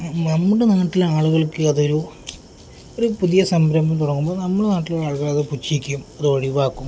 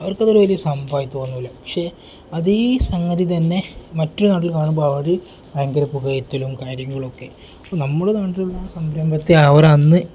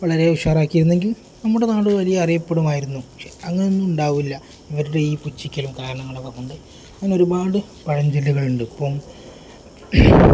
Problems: none marked